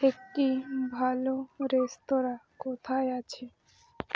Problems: constant background noise